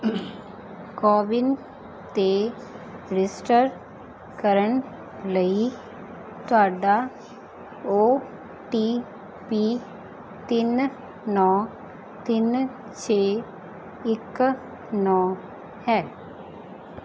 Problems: background sounds at intervals